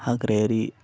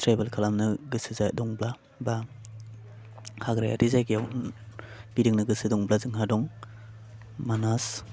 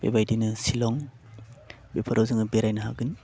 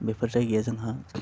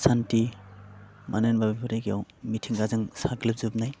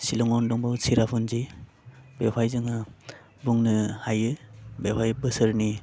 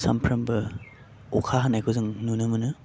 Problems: none marked